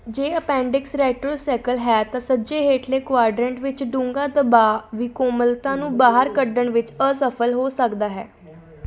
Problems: background sounds at intervals, background conversations at intervals